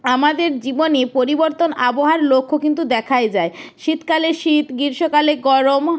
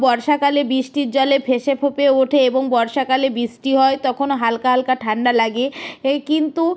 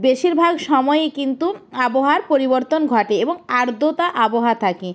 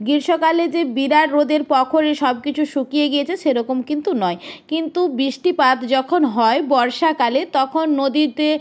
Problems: background sounds at intervals